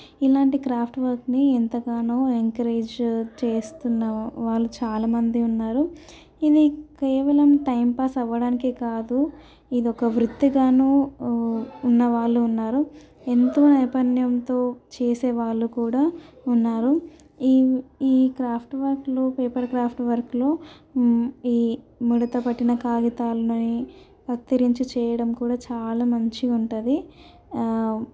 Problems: none marked